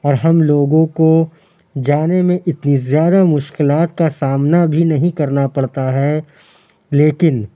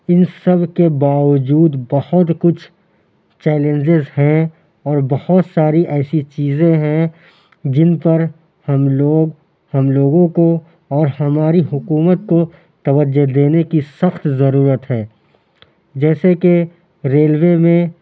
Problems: constant background noise, background conversations at intervals